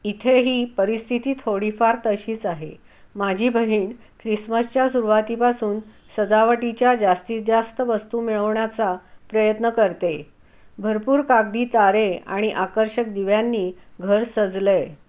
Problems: none marked